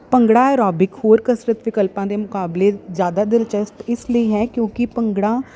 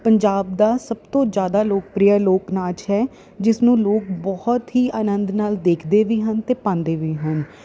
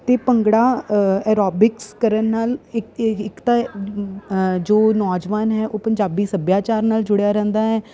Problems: none marked